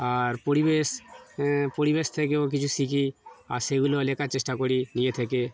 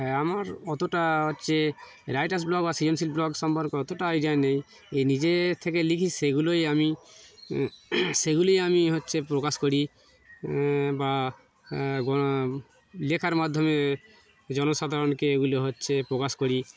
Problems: background sounds at intervals